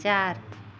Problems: constant background noise